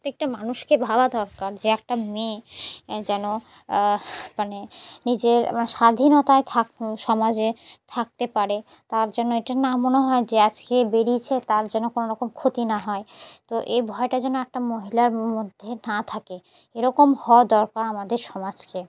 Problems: background sounds at intervals